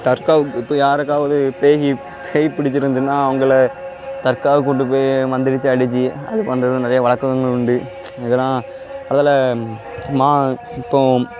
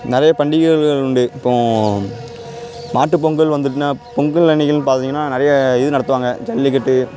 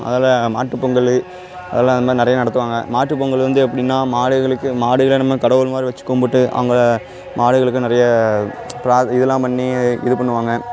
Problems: constant background noise